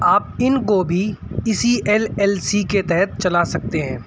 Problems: none marked